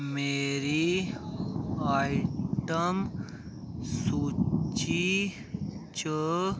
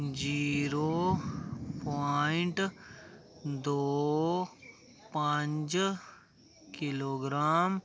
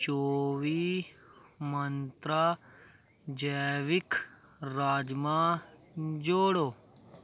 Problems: none marked